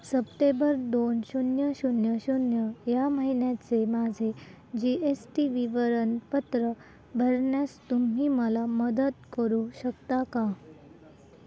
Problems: constant background noise, continuous background conversations